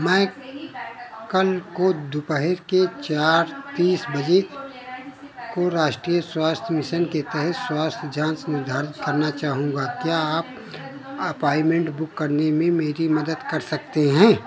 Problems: none marked